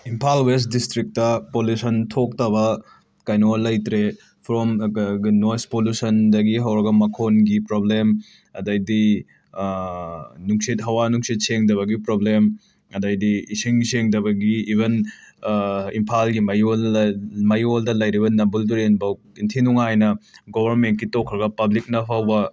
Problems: background conversations at intervals